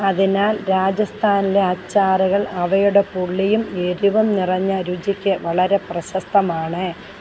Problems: constant background noise